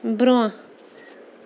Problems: constant background noise